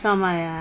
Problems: constant background noise